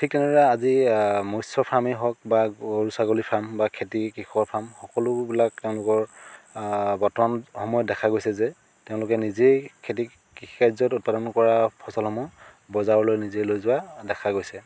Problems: constant background noise